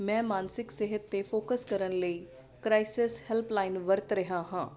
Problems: constant background noise